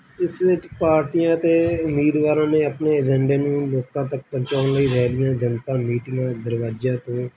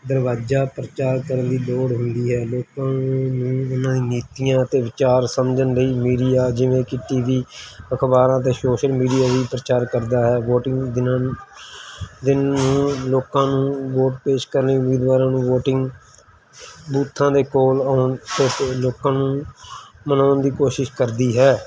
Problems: background sounds at intervals